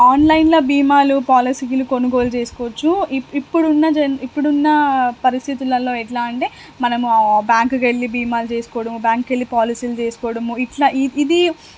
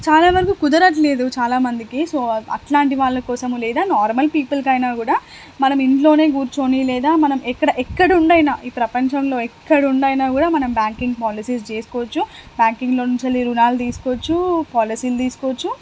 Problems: constant background noise